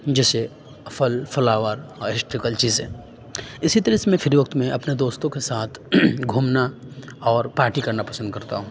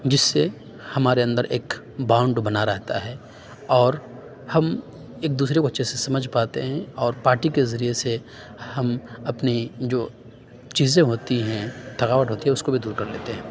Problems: none marked